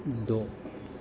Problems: constant background noise